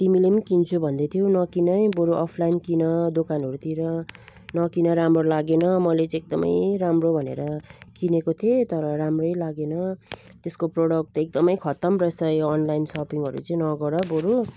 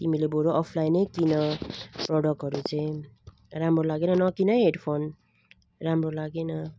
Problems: none marked